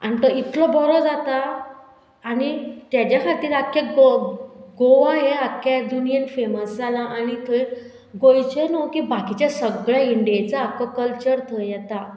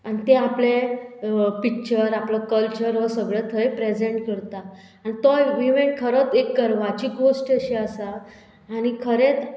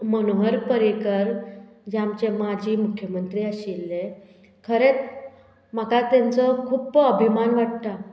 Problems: background sounds at intervals